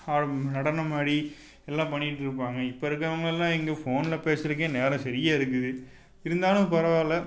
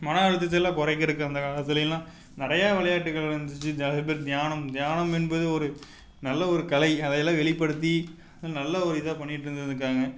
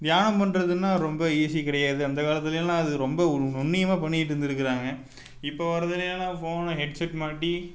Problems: none marked